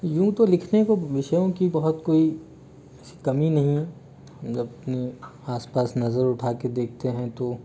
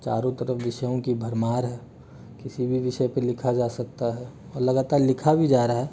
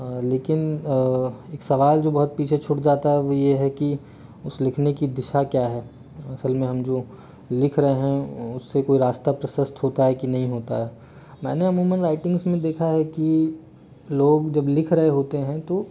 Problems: background sounds at intervals